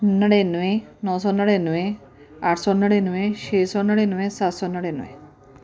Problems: none marked